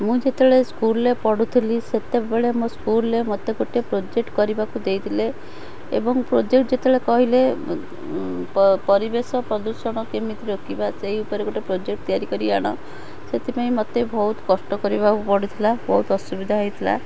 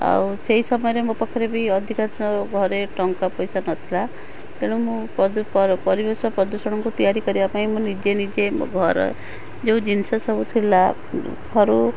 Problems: constant background noise